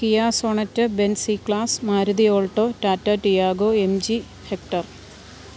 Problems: none marked